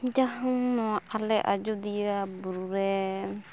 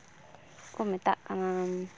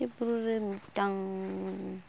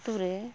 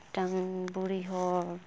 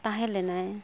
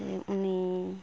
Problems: none marked